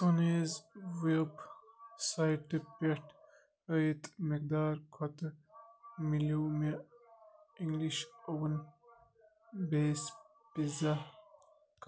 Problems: none marked